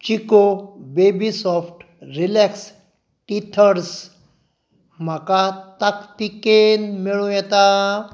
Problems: none marked